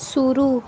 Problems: background sounds at intervals